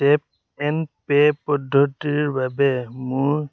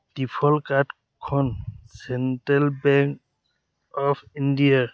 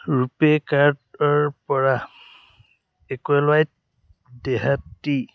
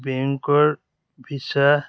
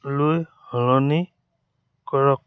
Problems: none marked